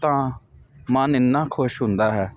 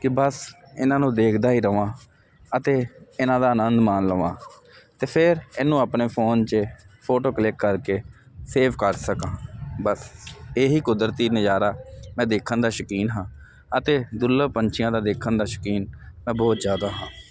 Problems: none marked